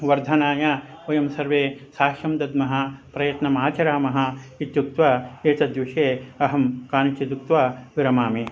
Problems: none marked